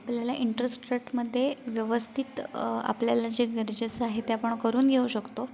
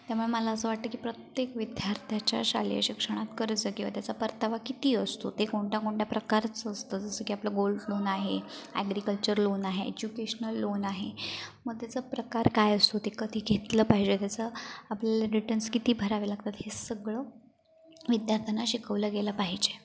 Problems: none marked